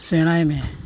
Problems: none marked